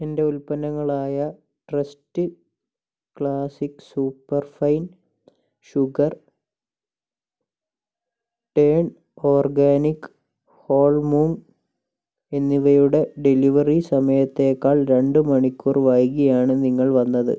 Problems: low volume